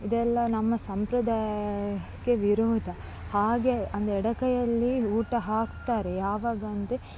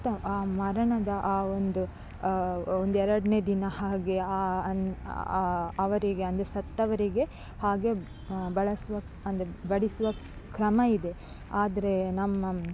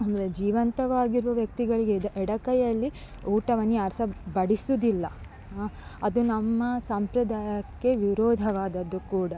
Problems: background sounds at intervals